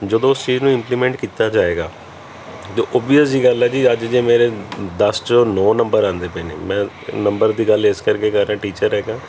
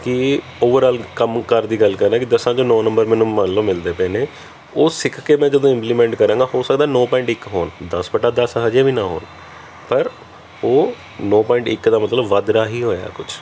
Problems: none marked